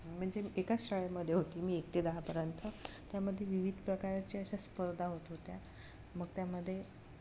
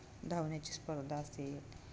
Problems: none marked